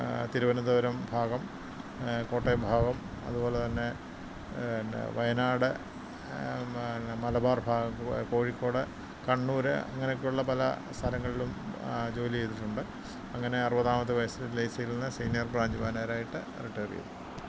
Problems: constant background noise